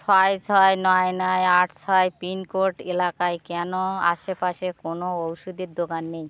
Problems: constant background noise